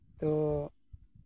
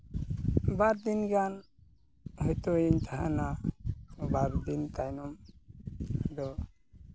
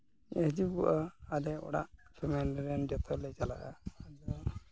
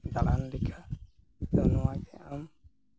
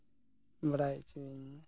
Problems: background sounds at intervals